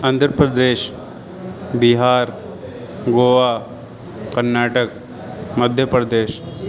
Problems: constant background noise